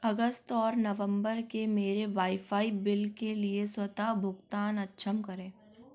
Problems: background sounds at intervals